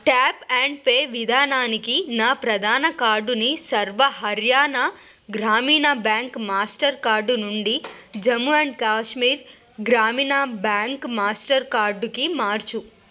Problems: none marked